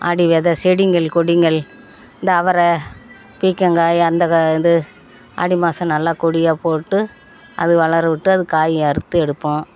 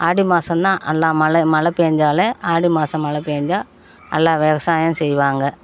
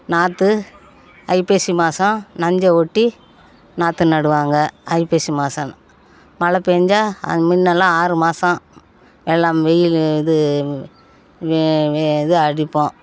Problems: background conversations at intervals